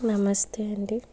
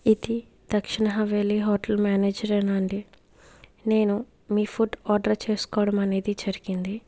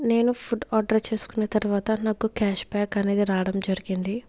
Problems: background sounds at intervals